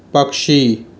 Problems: constant background noise